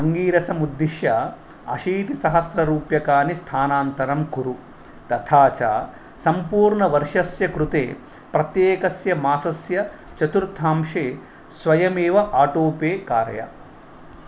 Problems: none marked